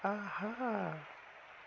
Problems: constant background noise